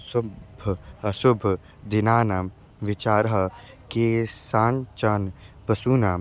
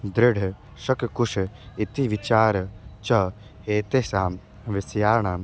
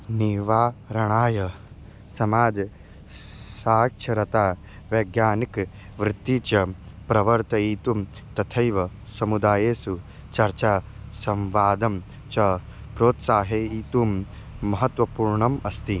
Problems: constant background noise